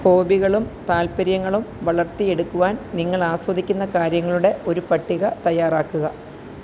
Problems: constant background noise